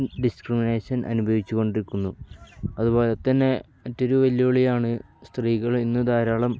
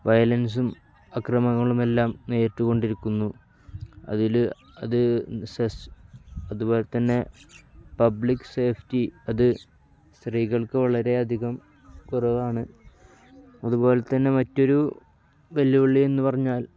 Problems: none marked